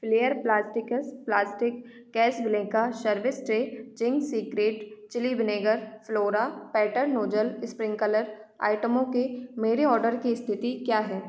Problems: echo